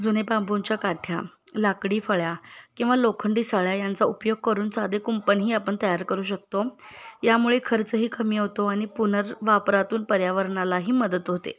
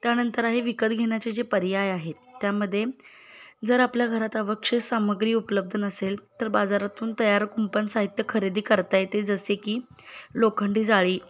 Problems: none marked